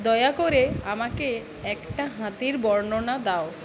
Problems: constant background noise